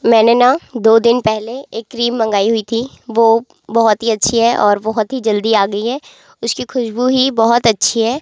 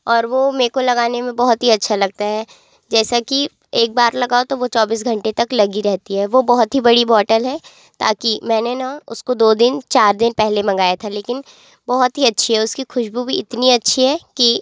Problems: background sounds at intervals